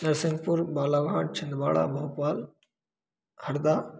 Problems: background sounds at intervals